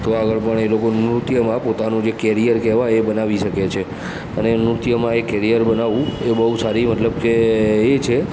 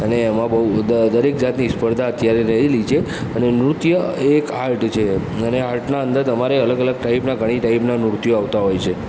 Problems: background sounds at intervals